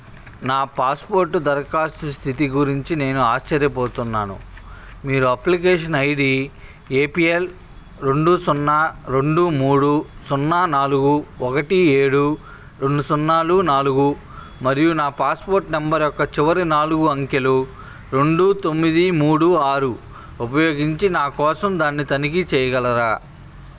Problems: constant background noise, background conversations at intervals